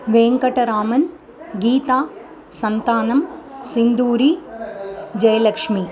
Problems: continuous background conversations